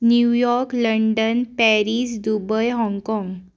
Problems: background sounds at intervals